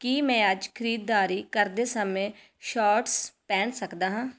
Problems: none marked